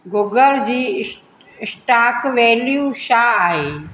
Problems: constant background noise, echo